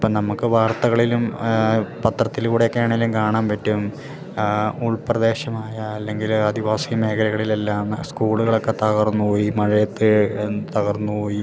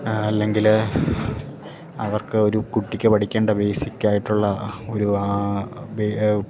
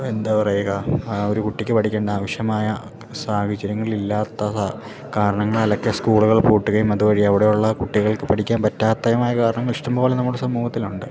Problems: background sounds at intervals